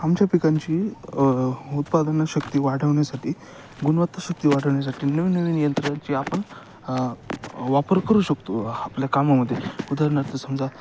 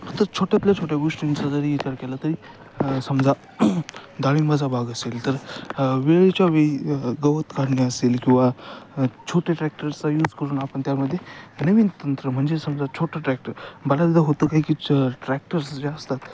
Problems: constant background noise, background conversations at intervals